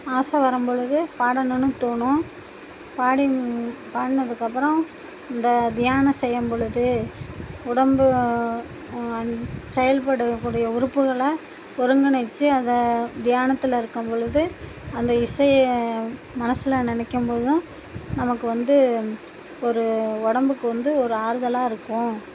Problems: constant background noise